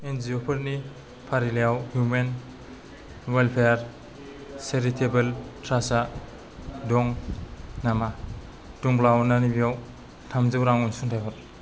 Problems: low volume